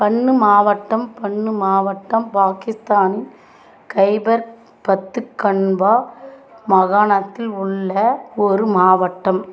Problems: constant background noise, background conversations at intervals